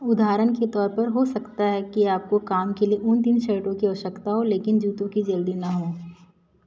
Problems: none marked